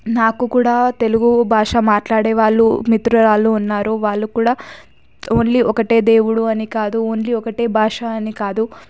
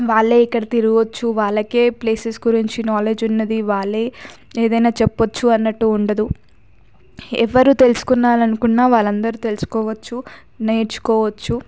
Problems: background sounds at intervals